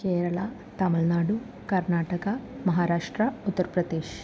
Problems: constant background noise